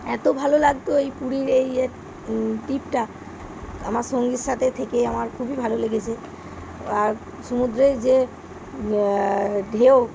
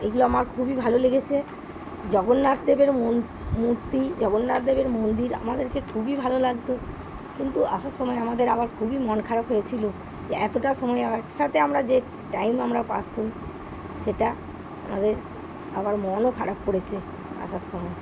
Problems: background sounds at intervals